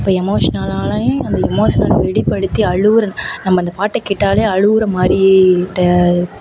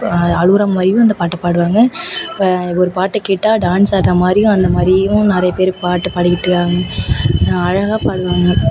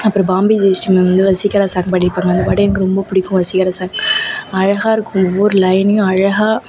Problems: background sounds at intervals